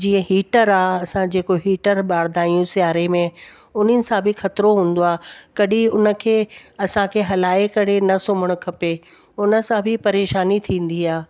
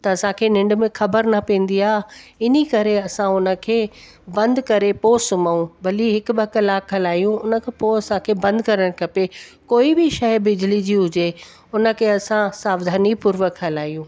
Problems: constant background noise